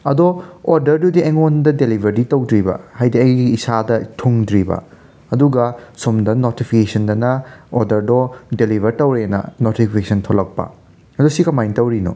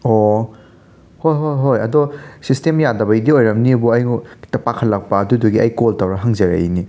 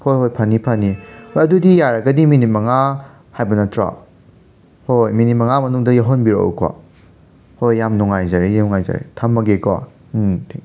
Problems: background sounds at intervals